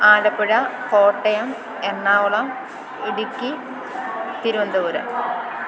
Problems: none marked